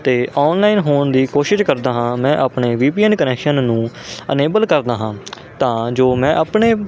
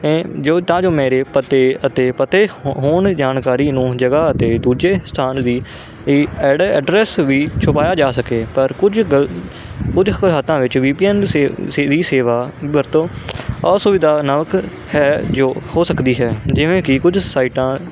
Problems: constant background noise